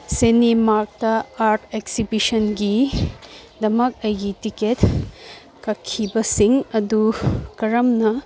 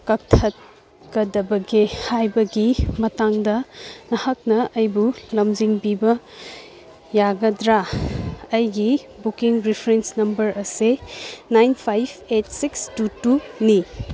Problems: background conversations at intervals